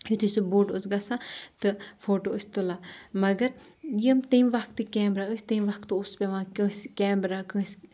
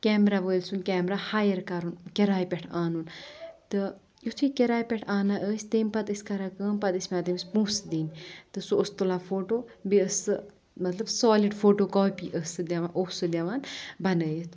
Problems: none marked